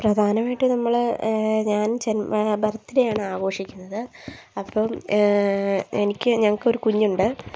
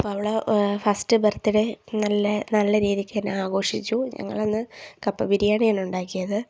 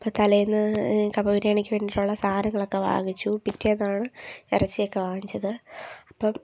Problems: none marked